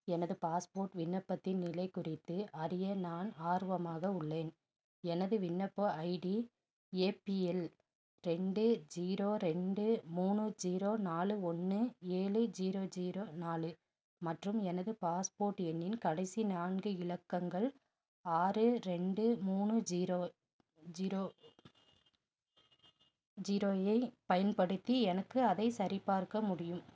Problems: none marked